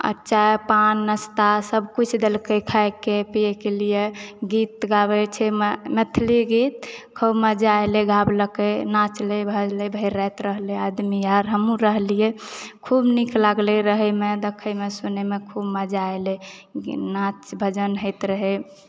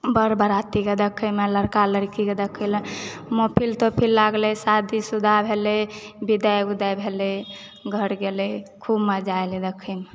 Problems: background sounds at intervals